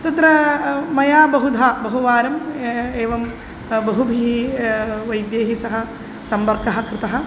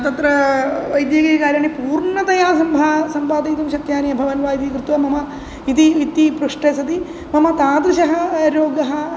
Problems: none marked